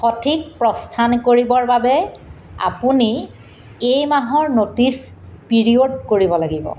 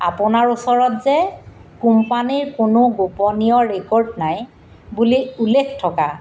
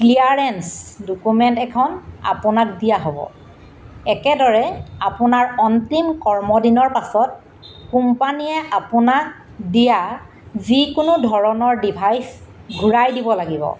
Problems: none marked